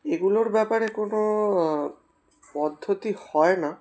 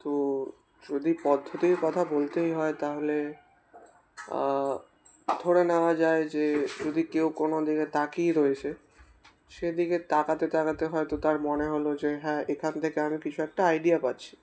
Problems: constant background noise